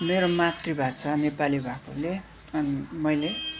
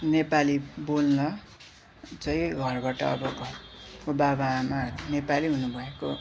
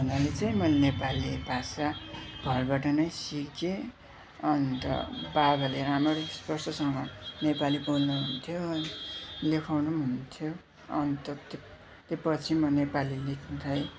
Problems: constant background noise, continuous background conversations